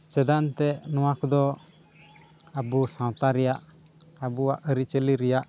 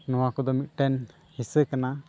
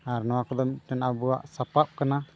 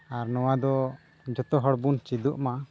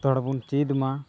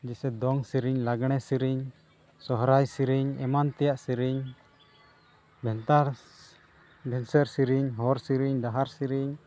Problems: constant background noise